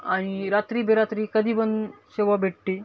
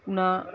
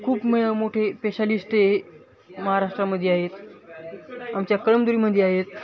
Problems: constant background noise, continuous background conversations